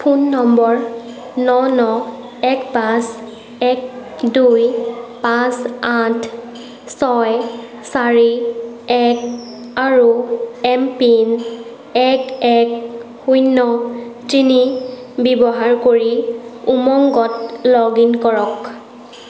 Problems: background sounds at intervals, background conversations at intervals